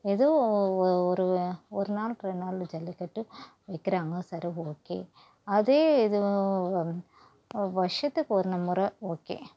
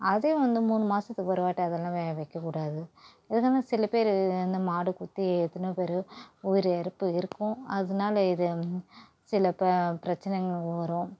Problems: low volume